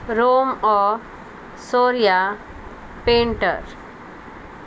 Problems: constant background noise